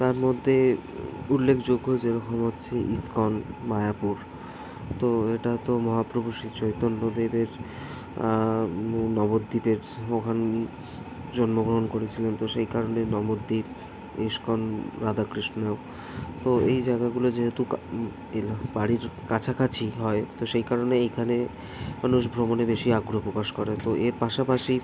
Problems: none marked